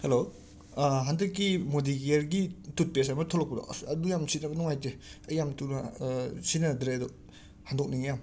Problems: none marked